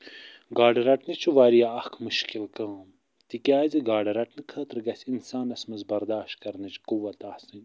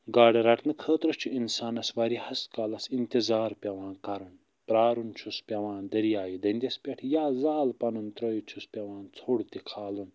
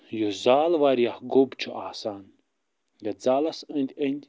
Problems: none marked